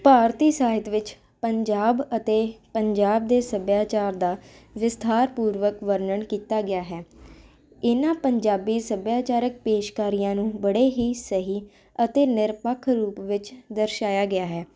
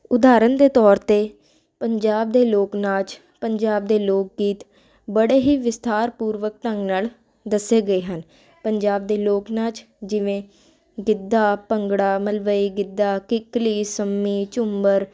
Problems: constant background noise